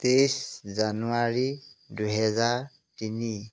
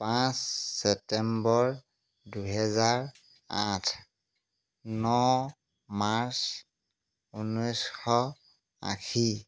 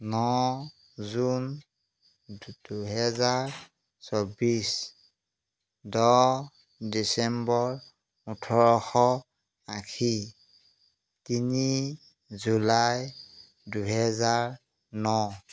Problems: background sounds at intervals